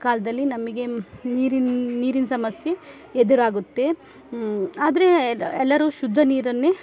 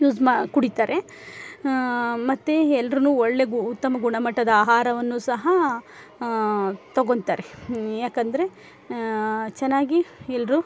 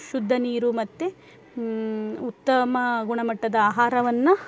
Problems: none marked